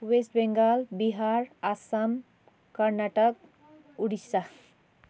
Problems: none marked